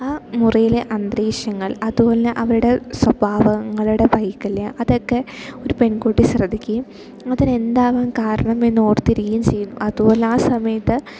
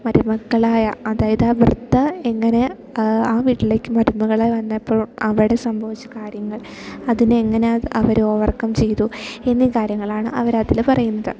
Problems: background sounds at intervals